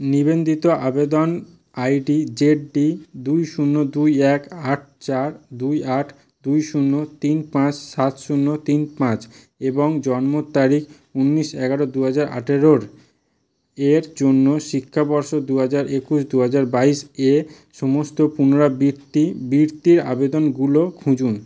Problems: constant background noise